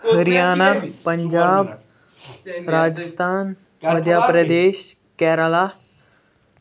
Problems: constant background noise, background conversations at intervals